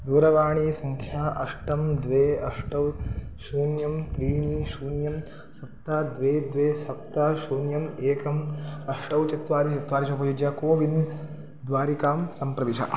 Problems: constant background noise